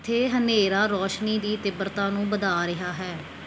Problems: background sounds at intervals